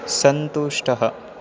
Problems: none marked